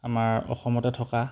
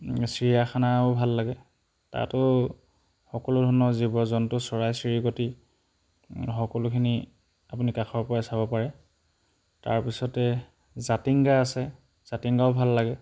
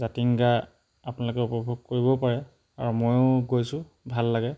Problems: background sounds at intervals